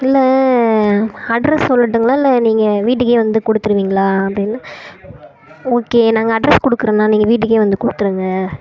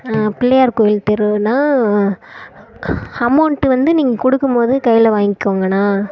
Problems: none marked